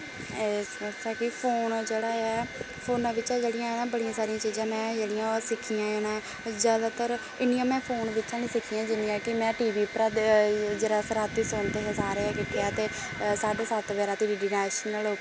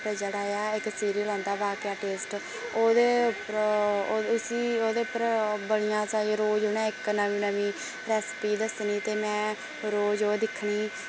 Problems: constant background noise